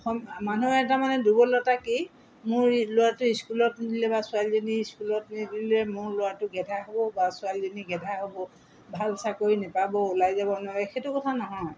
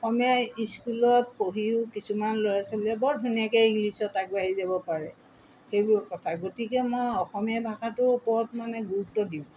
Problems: background sounds at intervals